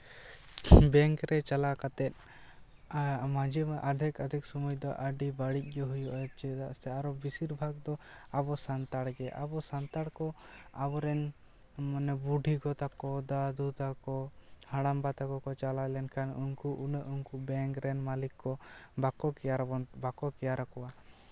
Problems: none marked